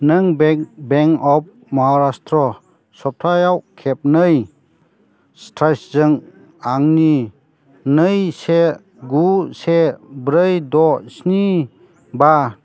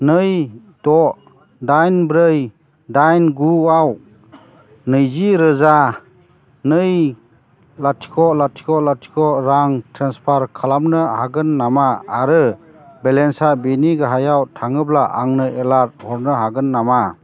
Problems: constant background noise